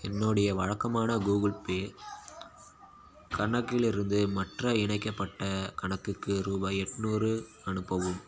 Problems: background sounds at intervals